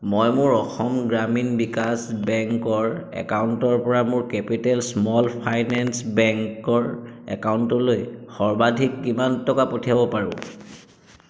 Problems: constant background noise, echo